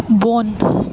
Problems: constant background noise